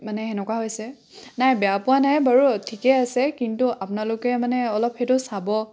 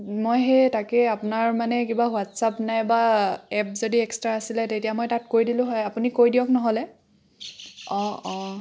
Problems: constant background noise